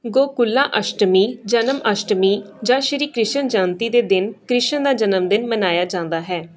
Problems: background sounds at intervals